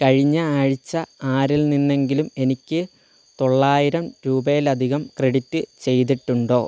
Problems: none marked